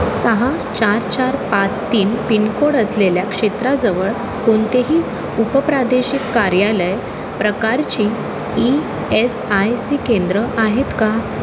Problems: constant background noise, background conversations at intervals